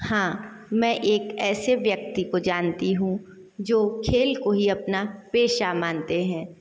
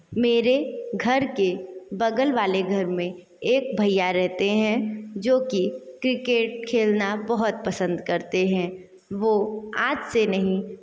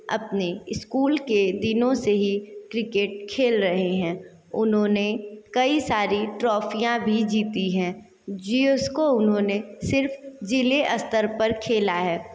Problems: constant background noise, echo